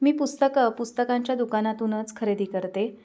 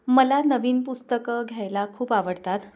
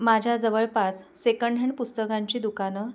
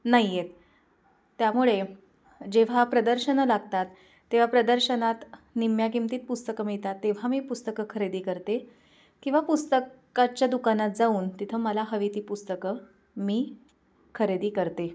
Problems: background sounds at intervals